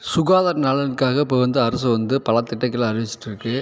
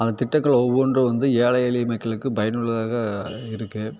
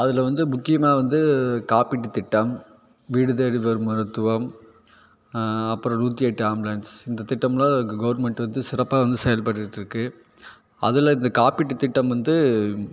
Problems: constant background noise